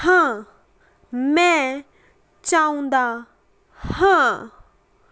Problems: none marked